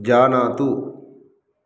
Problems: none marked